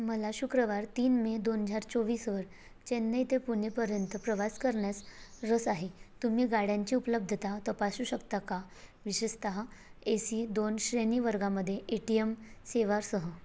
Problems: none marked